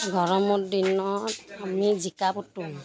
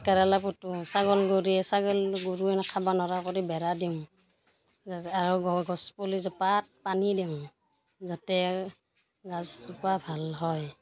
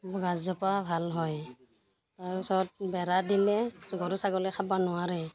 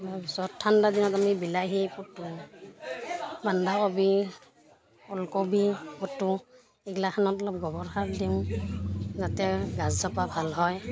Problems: continuous background conversations